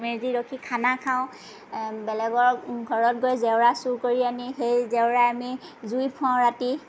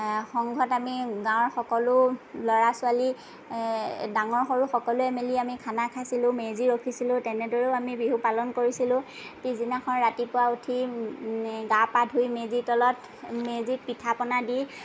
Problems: none marked